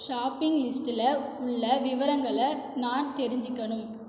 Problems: echo